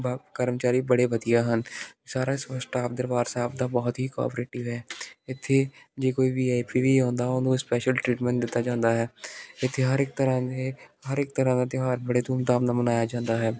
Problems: none marked